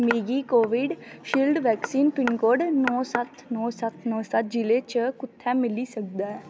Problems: constant background noise